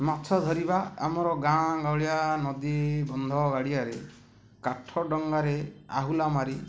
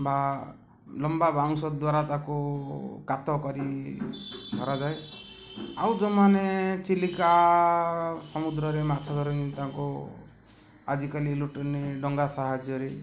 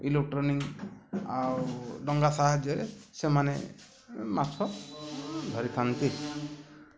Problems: none marked